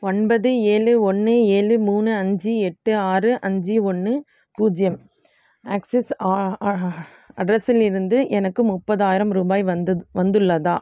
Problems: none marked